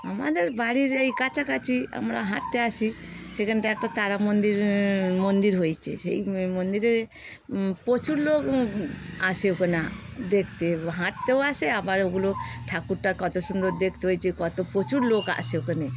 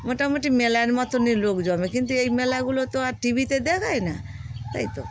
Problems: constant background noise, background conversations at intervals